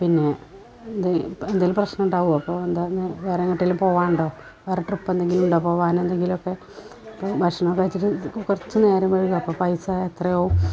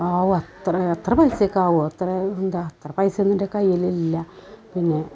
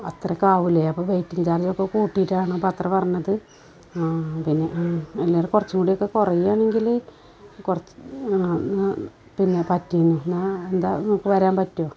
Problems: constant background noise